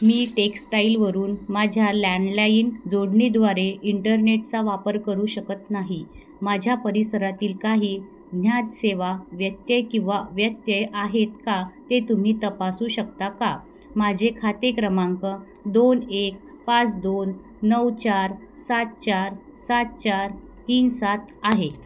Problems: constant background noise